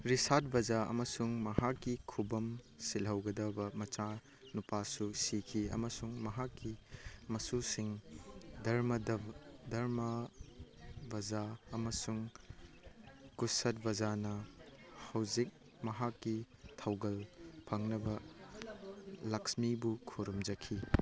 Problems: background sounds at intervals, background conversations at intervals